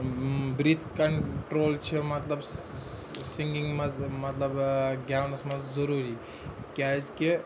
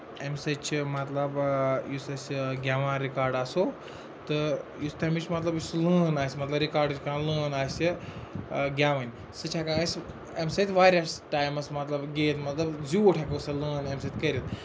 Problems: constant background noise, continuous background conversations